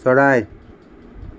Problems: constant background noise